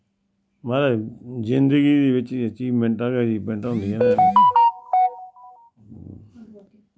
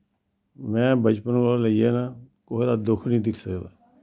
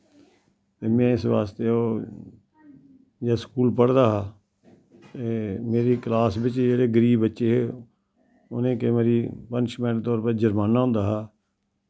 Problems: background sounds at intervals